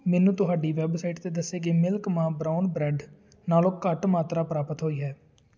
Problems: none marked